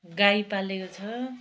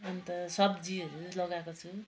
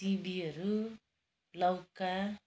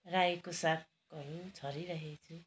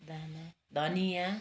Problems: none marked